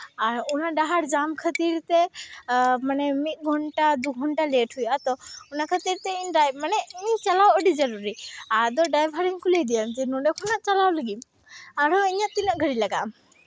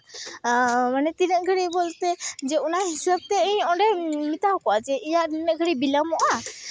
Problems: constant background noise, background conversations at intervals